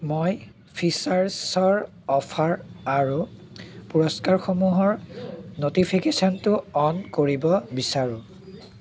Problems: constant background noise, background conversations at intervals